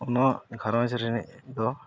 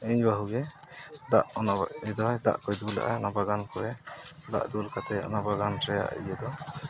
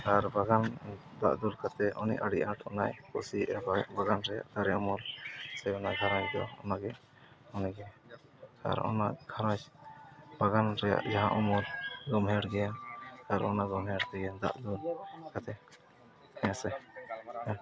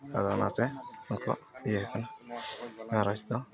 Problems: background sounds at intervals, background conversations at intervals